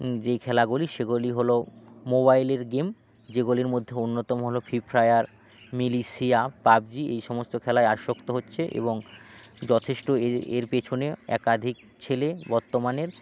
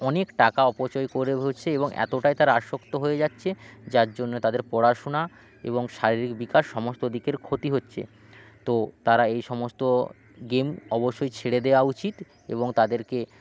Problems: background sounds at intervals